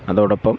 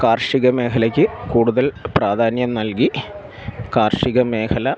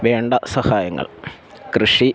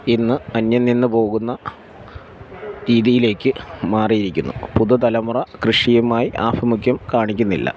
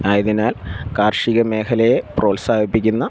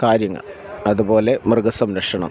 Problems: background sounds at intervals